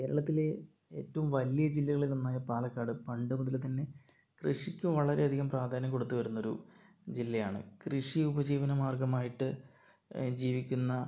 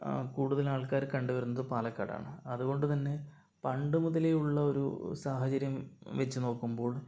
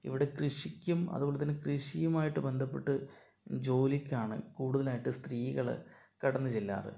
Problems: low volume